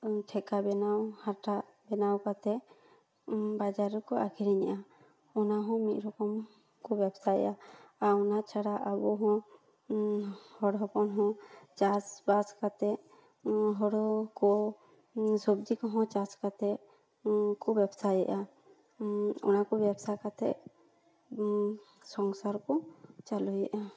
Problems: background sounds at intervals, echo